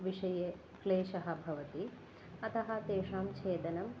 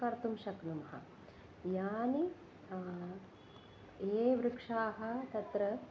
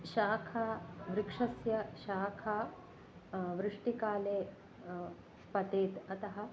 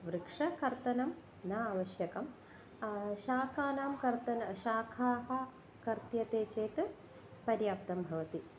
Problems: none marked